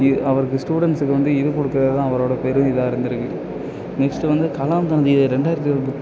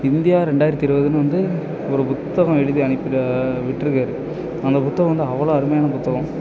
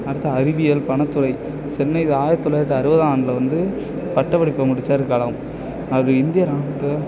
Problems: background sounds at intervals, continuous background conversations